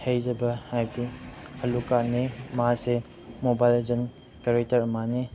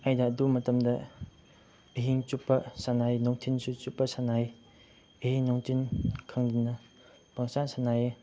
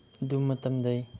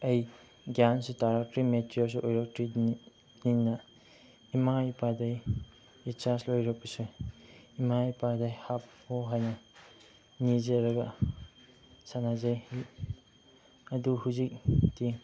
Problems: background sounds at intervals, background conversations at intervals